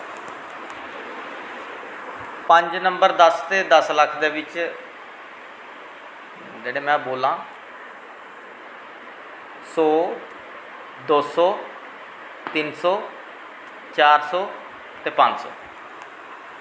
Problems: constant background noise, echo